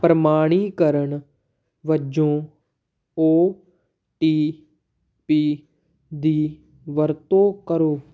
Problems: background sounds at intervals